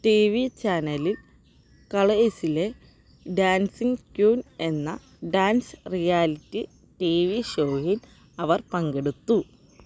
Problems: background sounds at intervals